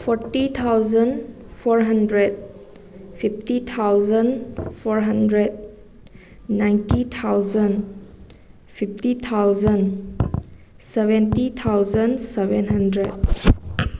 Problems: background sounds at intervals